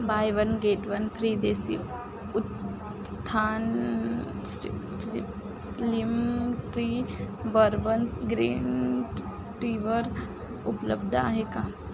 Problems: constant background noise